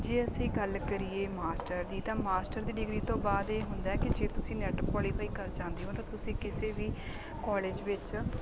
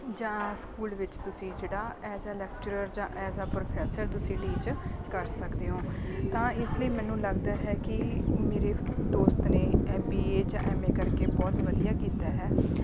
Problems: constant background noise